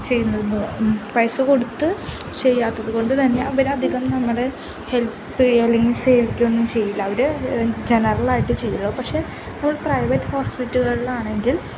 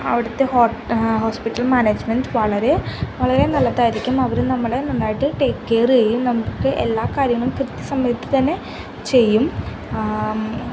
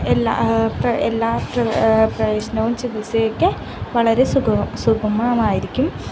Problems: constant background noise, low volume